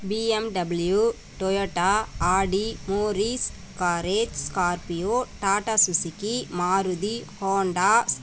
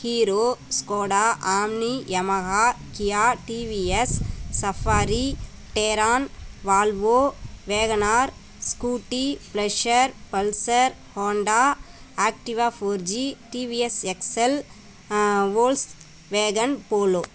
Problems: background sounds at intervals